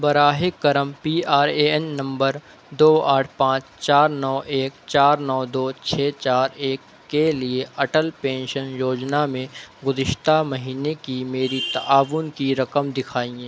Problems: constant background noise